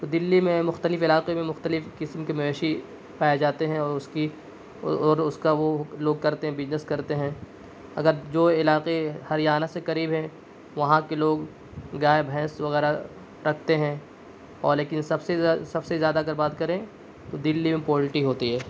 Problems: constant background noise